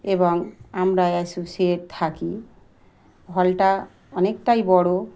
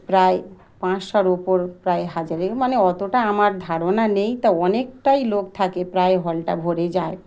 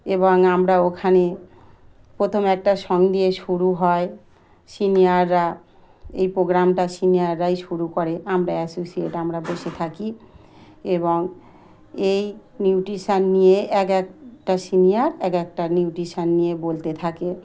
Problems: background sounds at intervals